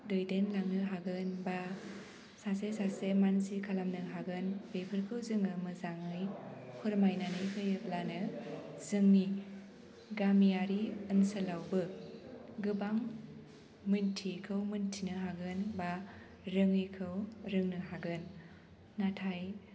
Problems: low volume